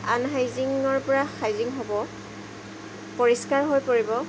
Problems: constant background noise